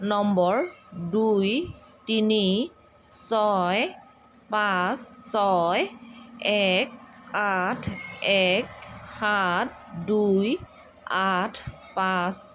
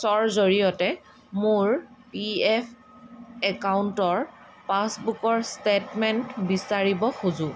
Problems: constant background noise